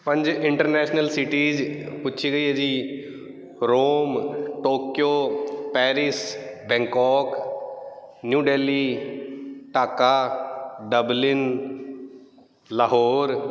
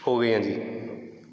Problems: background sounds at intervals